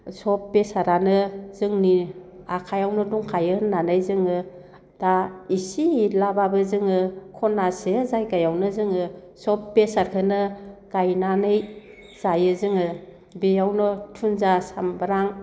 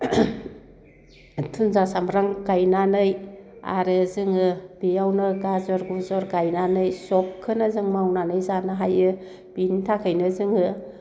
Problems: constant background noise